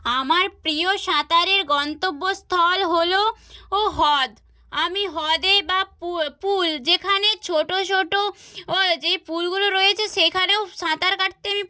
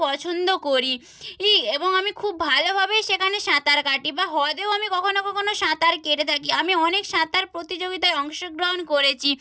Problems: none marked